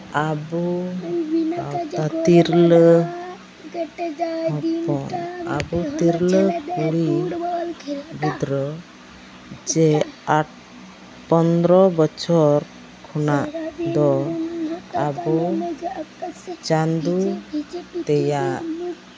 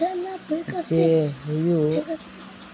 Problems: constant background noise, background conversations at intervals